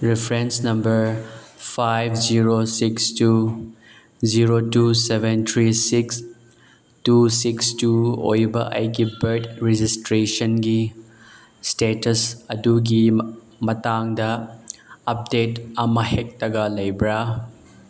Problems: none marked